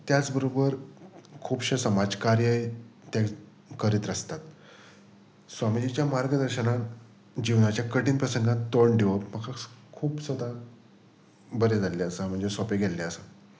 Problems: background sounds at intervals